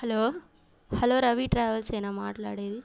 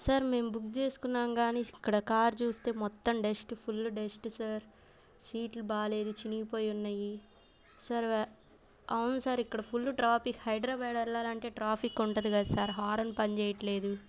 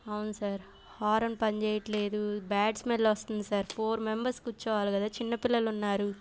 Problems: background sounds at intervals